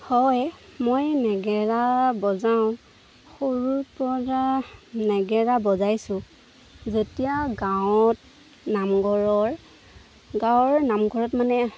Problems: constant background noise